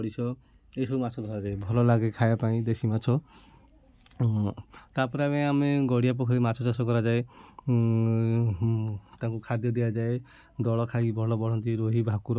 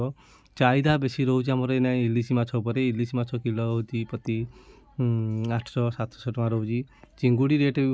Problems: constant background noise, continuous background conversations